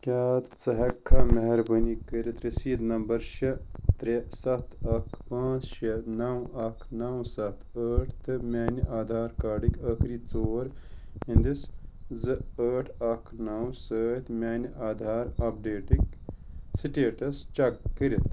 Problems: constant background noise